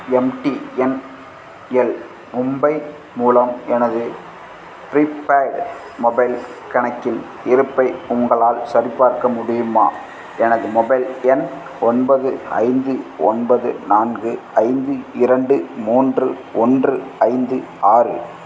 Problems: none marked